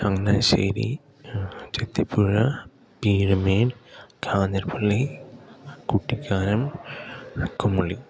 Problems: none marked